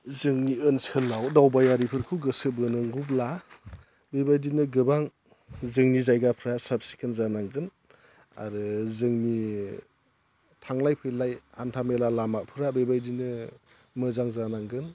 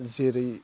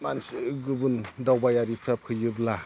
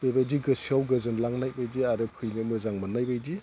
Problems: low volume